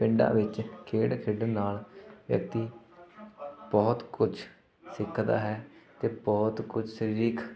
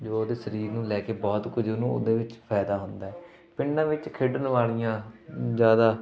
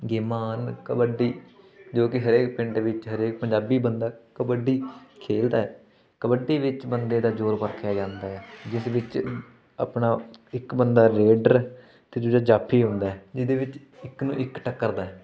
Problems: continuous background conversations